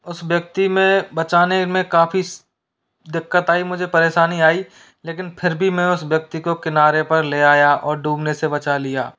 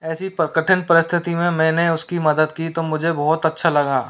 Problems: constant background noise